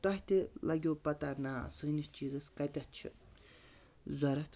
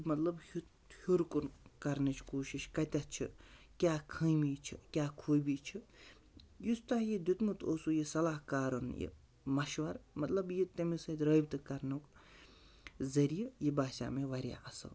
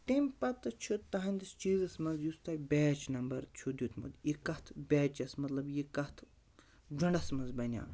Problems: none marked